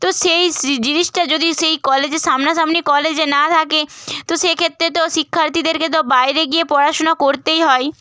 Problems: none marked